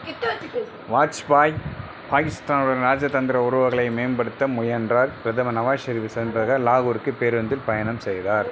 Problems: background sounds at intervals